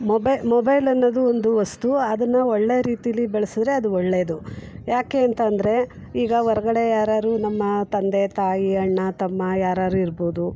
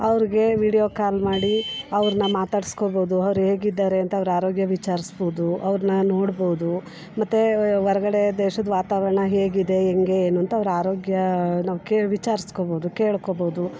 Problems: background sounds at intervals